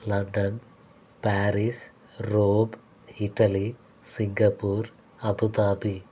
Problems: constant background noise